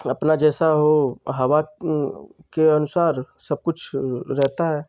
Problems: constant background noise